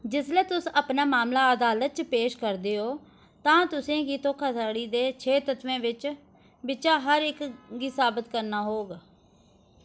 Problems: none marked